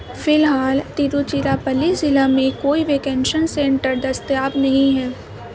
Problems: constant background noise